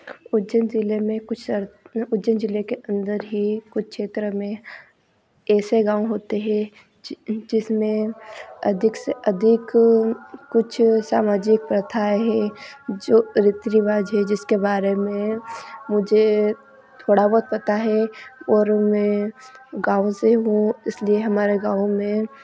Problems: constant background noise